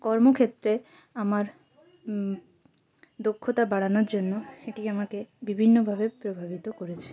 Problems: constant background noise, background conversations at intervals